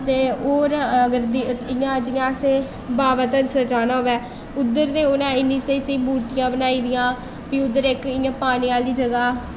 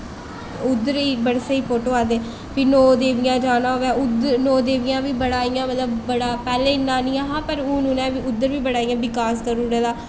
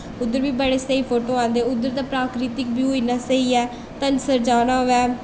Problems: constant background noise, echo